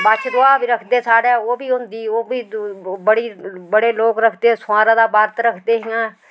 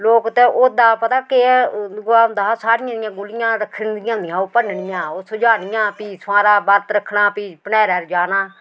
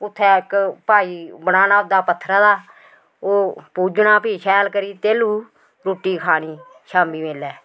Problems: constant background noise, background conversations at intervals